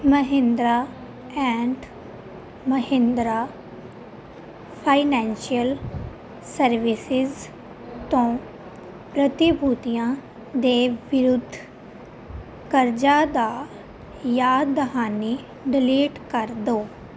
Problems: constant background noise